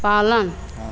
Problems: constant background noise, echo